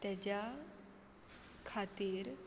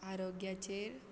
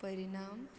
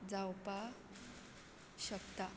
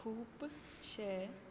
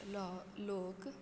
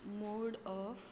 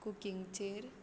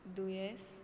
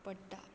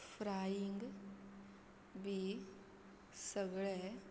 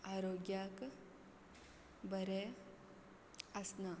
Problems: constant background noise